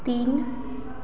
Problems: constant background noise, echo